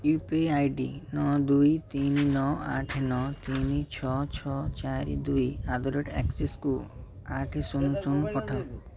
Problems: continuous background conversations